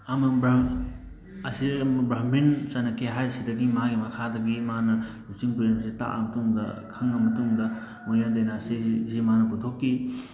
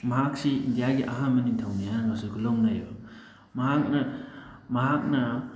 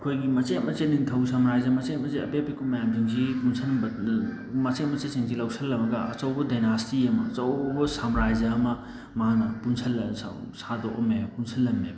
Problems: constant background noise